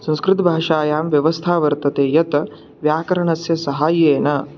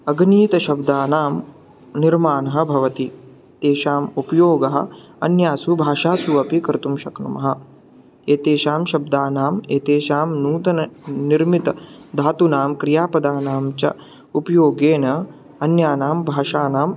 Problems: none marked